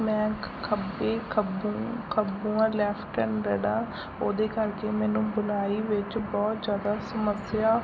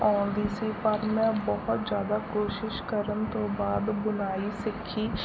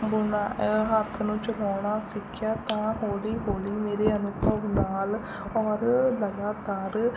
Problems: constant background noise